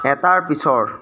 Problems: constant background noise